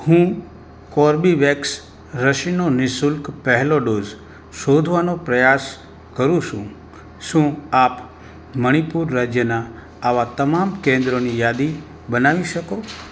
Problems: background sounds at intervals